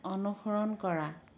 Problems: none marked